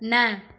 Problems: constant background noise, echo